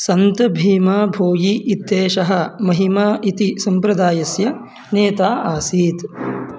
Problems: constant background noise